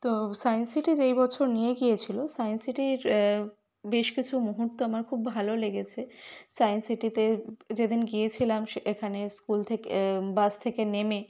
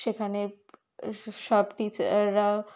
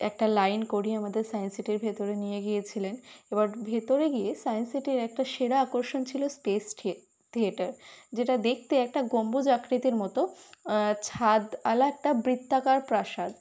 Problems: constant background noise